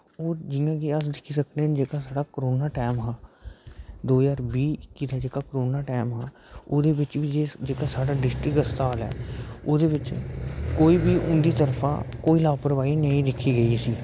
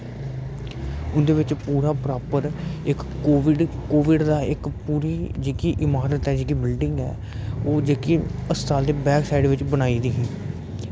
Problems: constant background noise, low volume